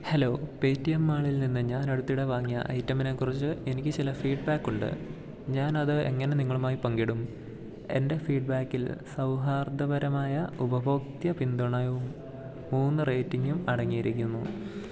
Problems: none marked